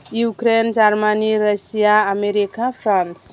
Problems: constant background noise